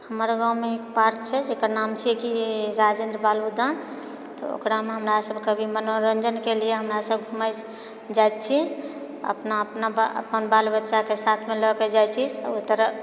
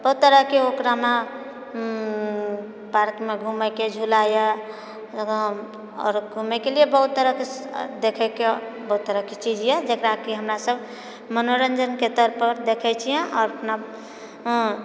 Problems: none marked